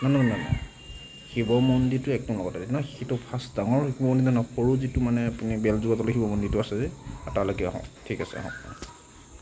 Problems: constant background noise, background conversations at intervals